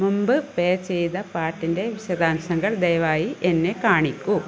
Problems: constant background noise